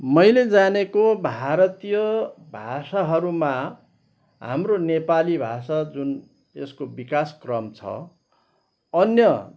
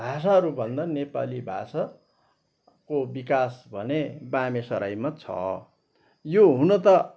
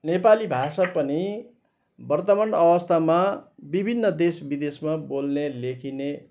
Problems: background sounds at intervals